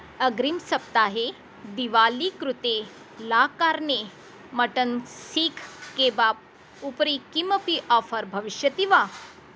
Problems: constant background noise